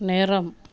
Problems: background sounds at intervals